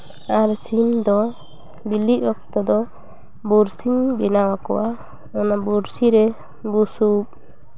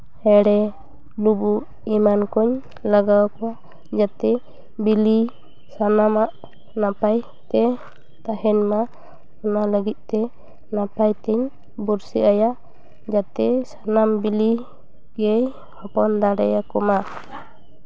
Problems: background sounds at intervals, background conversations at intervals